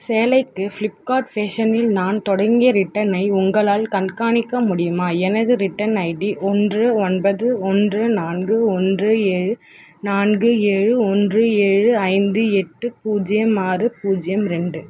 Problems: constant background noise